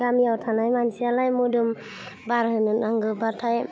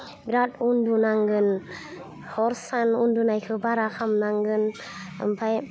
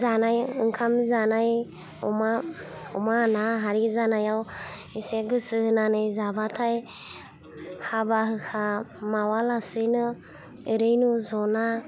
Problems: constant background noise